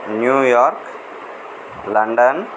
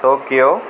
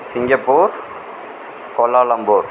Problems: constant background noise